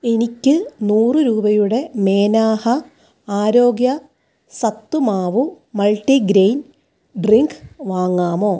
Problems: none marked